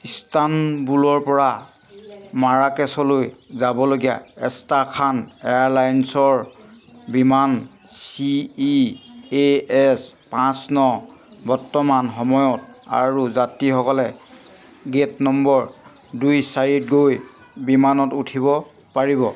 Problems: none marked